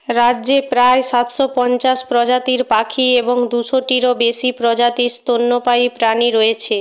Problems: none marked